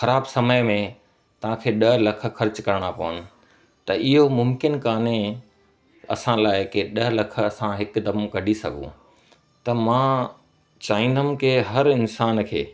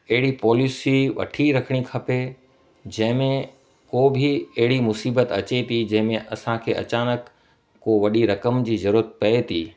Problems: constant background noise